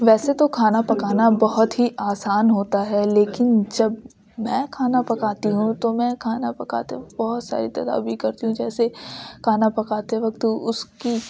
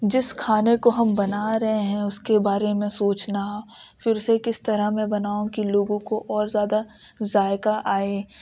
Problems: constant background noise